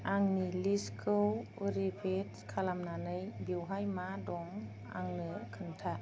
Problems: low volume